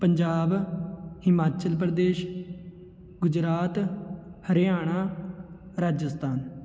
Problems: none marked